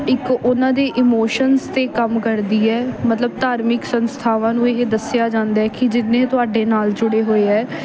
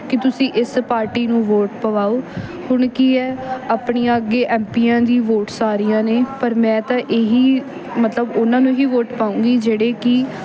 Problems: background sounds at intervals